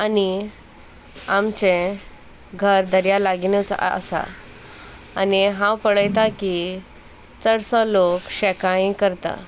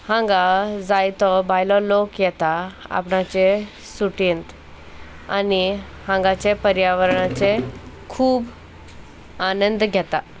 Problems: none marked